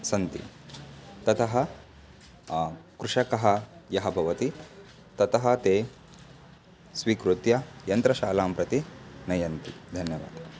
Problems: background sounds at intervals